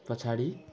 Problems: constant background noise